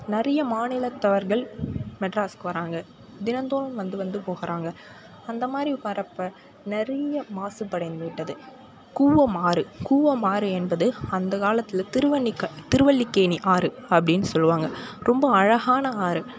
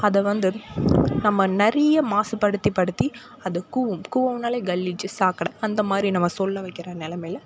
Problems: background conversations at intervals